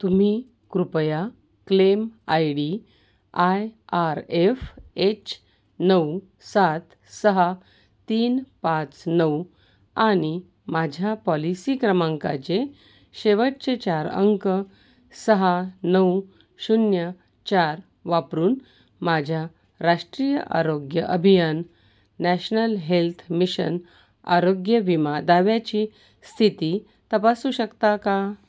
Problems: background sounds at intervals